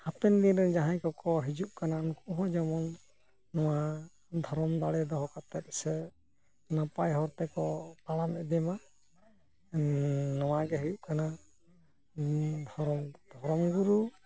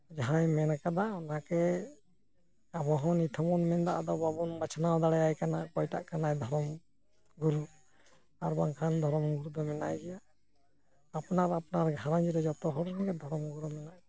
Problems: low volume